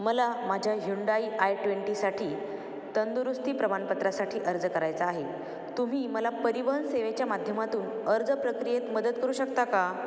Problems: constant background noise